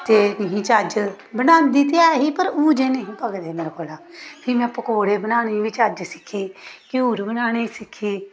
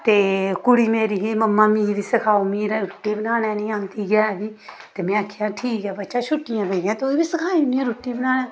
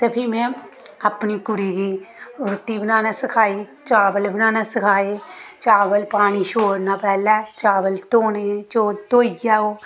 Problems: background sounds at intervals